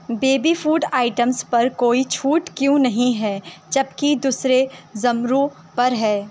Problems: none marked